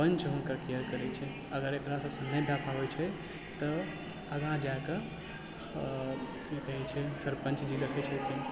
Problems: background sounds at intervals, background conversations at intervals, low volume